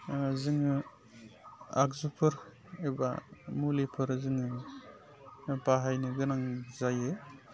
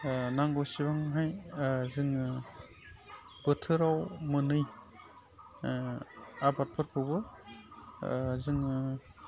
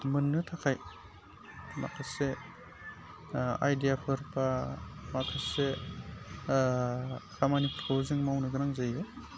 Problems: constant background noise